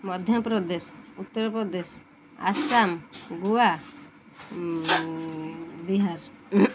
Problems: background sounds at intervals